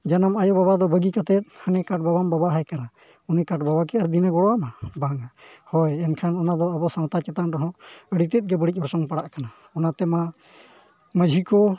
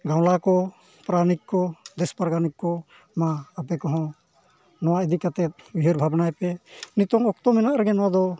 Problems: low volume